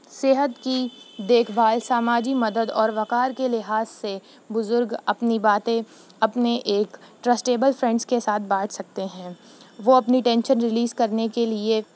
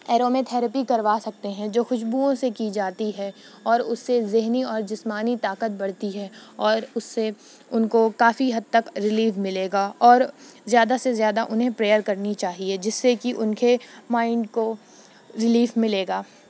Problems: none marked